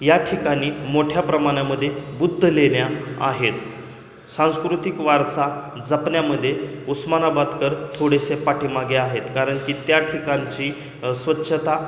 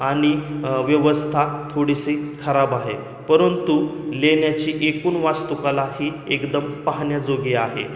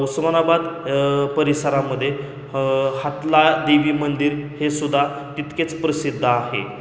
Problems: constant background noise